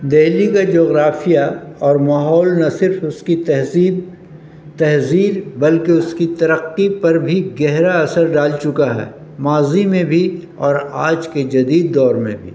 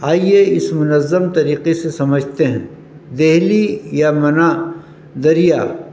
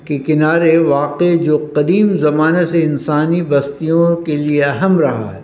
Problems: constant background noise